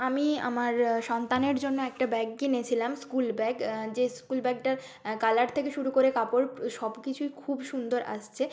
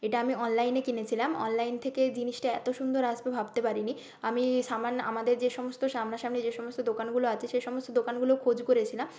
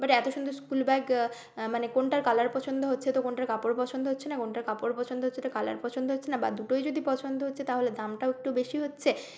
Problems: constant background noise